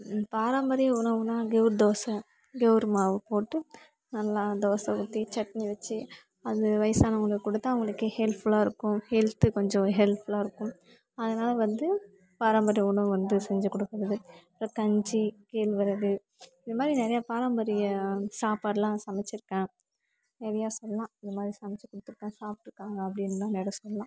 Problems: constant background noise, continuous background conversations, low volume